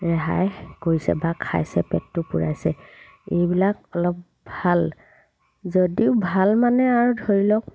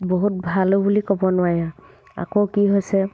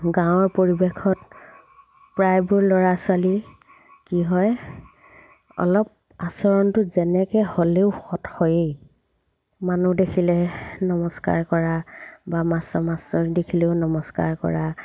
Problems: background sounds at intervals